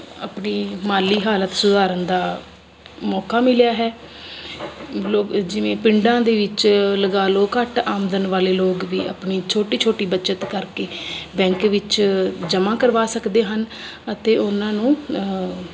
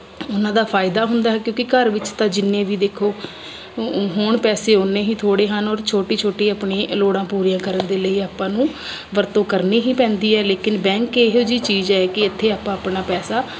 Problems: none marked